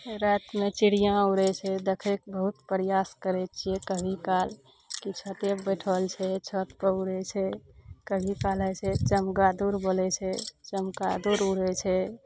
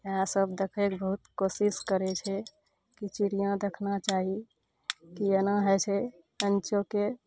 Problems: none marked